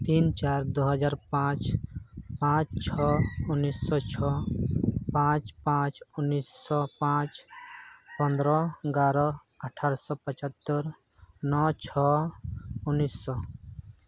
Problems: background sounds at intervals